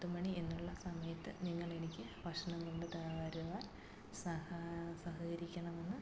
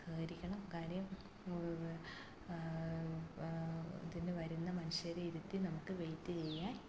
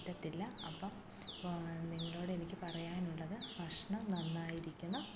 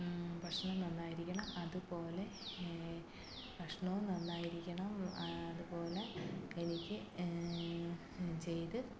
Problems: constant background noise, low volume